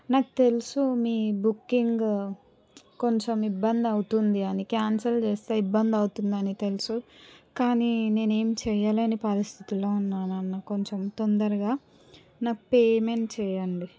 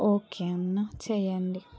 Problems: background conversations at intervals